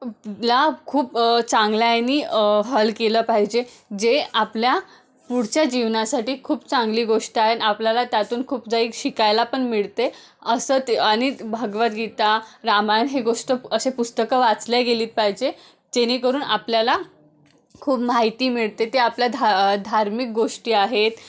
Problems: none marked